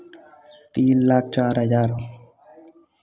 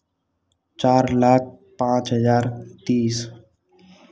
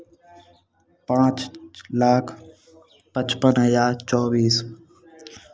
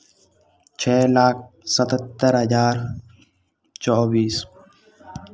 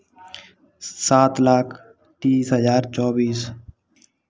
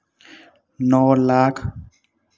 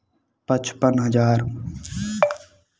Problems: constant background noise